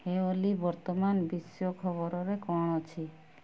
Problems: low volume